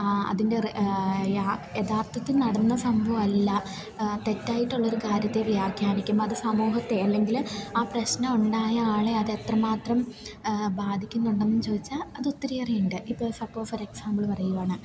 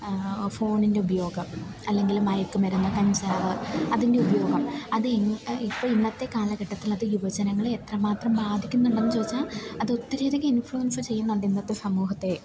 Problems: background sounds at intervals, low volume